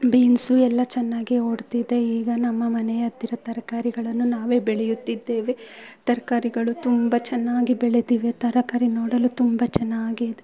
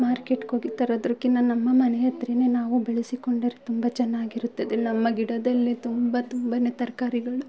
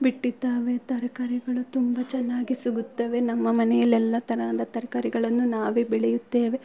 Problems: low volume